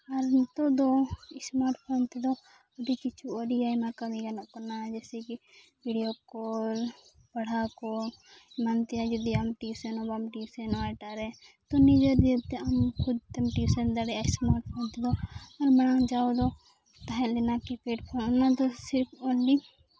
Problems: background sounds at intervals